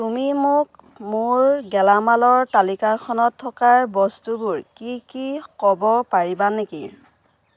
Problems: constant background noise